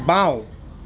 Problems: constant background noise